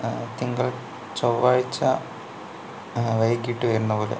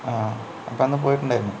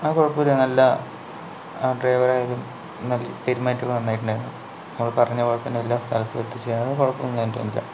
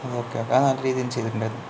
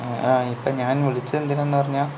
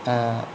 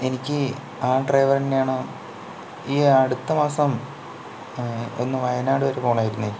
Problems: low volume